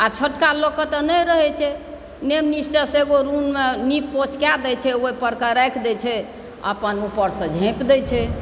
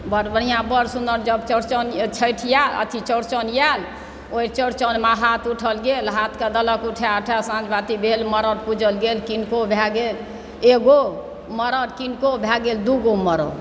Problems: background sounds at intervals, background conversations at intervals